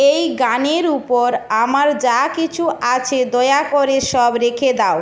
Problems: none marked